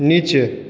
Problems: constant background noise, echo